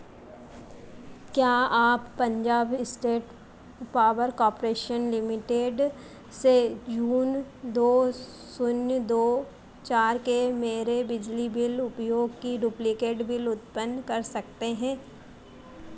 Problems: none marked